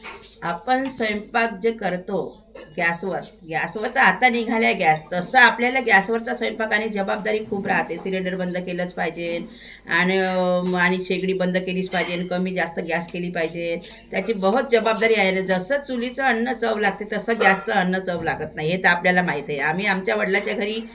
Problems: constant background noise, continuous background conversations